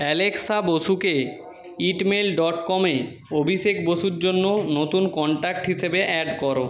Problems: background conversations at intervals